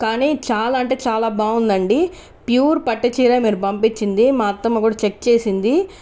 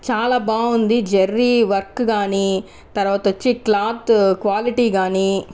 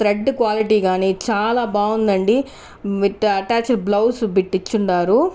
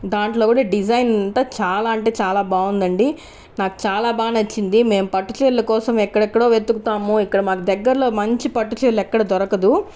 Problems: none marked